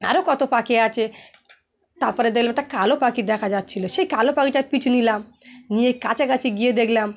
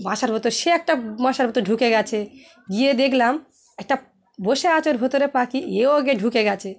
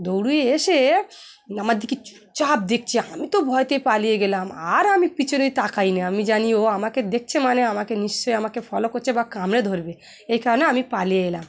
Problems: none marked